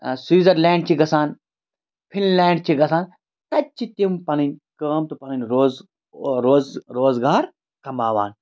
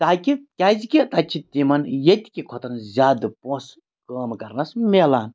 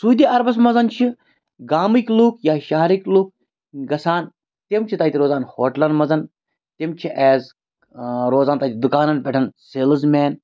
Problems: none marked